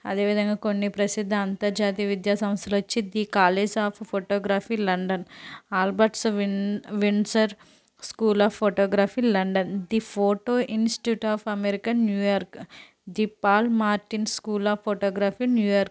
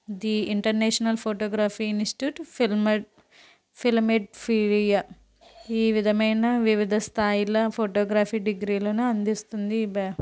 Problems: background sounds at intervals